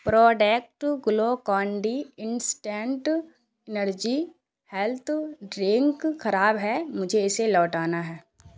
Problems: none marked